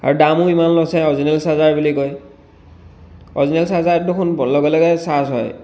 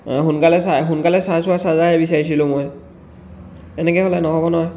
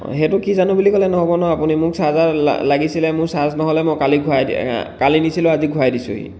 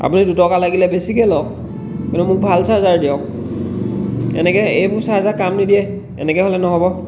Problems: background sounds at intervals